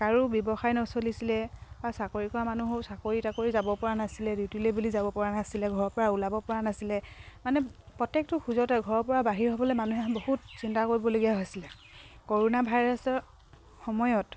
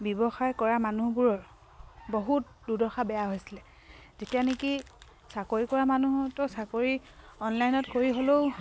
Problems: none marked